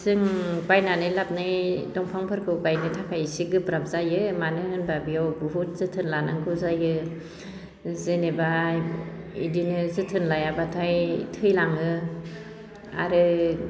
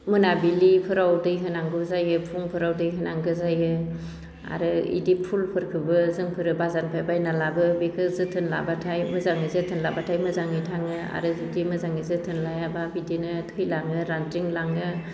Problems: none marked